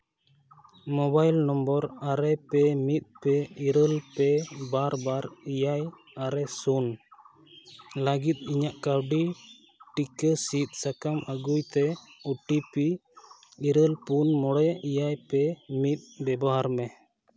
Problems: none marked